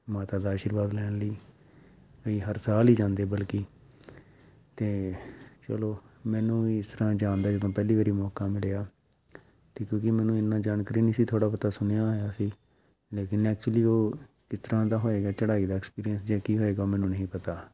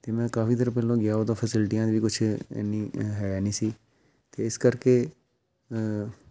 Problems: background sounds at intervals